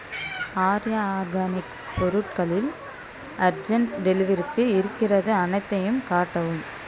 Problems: background sounds at intervals